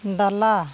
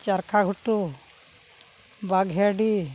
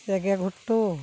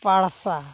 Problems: constant background noise